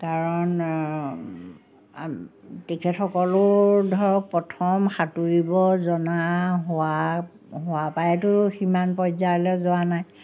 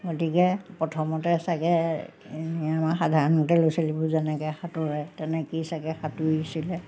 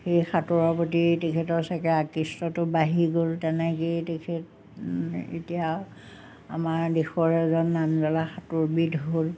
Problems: none marked